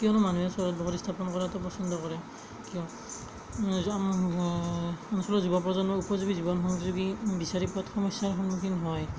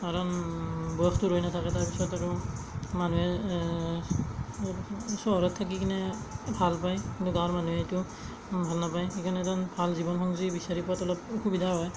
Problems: background sounds at intervals, low volume